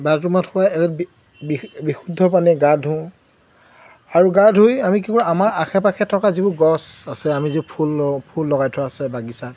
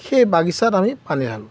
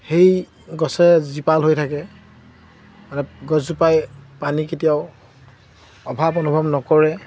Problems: constant background noise